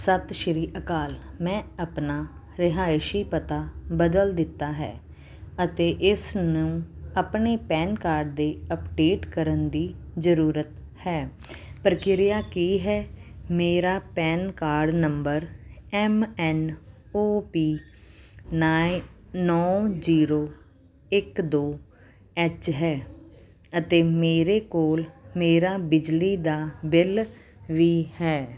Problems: background sounds at intervals, background conversations at intervals